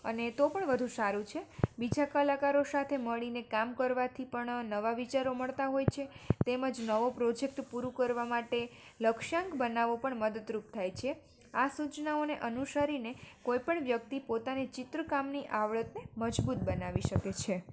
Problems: none marked